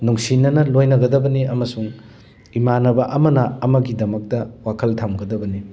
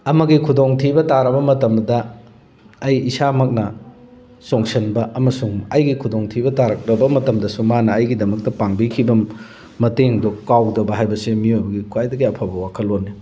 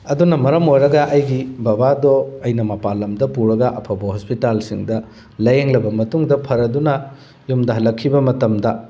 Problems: none marked